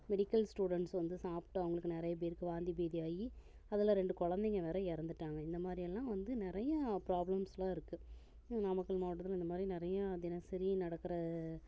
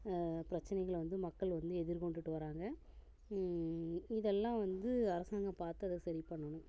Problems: low volume